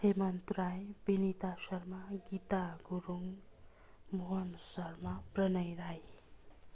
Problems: constant background noise, continuous background conversations